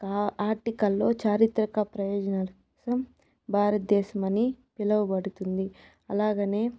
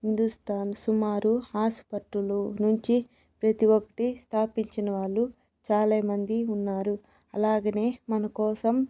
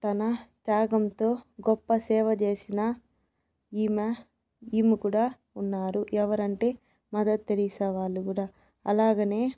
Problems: background sounds at intervals